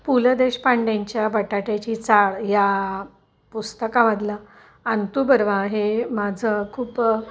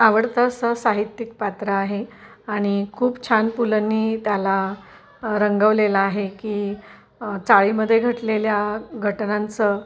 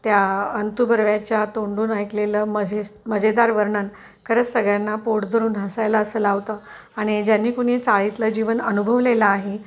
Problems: none marked